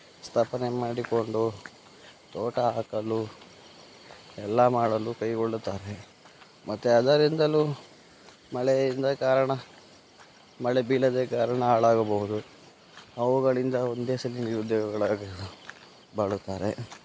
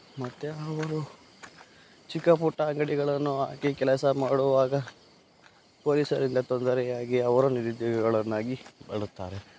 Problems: background sounds at intervals